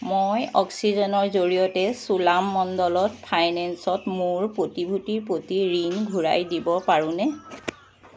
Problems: constant background noise